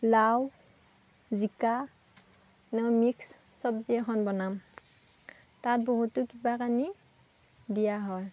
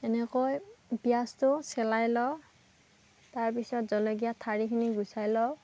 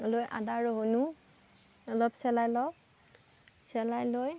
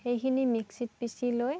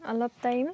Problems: none marked